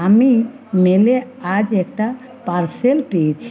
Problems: continuous background conversations